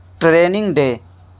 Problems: background sounds at intervals